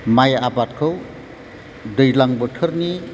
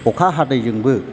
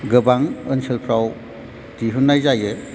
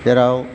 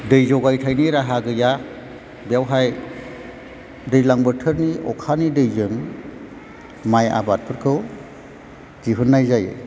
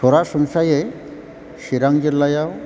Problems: background sounds at intervals